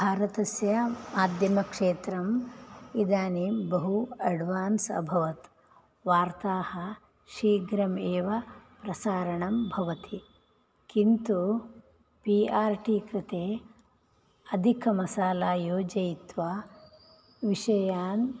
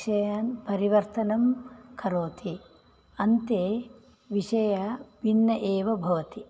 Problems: none marked